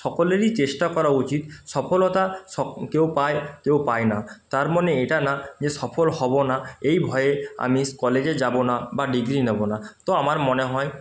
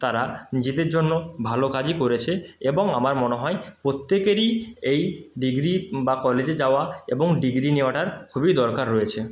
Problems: constant background noise